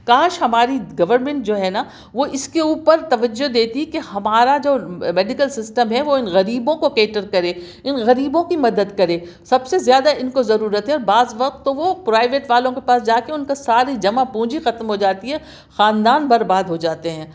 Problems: none marked